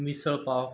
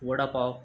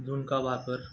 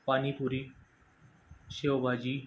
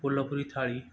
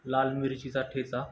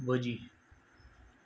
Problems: background sounds at intervals